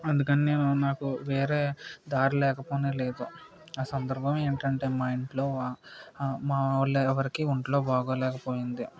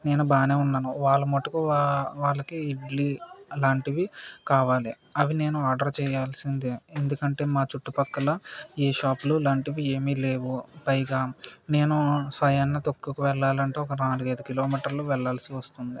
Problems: none marked